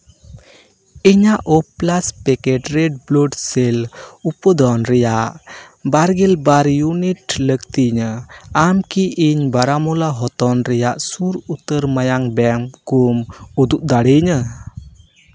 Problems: background sounds at intervals